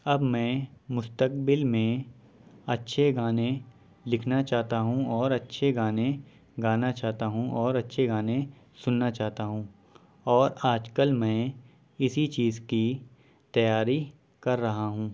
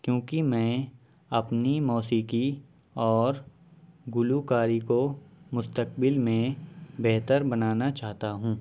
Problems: none marked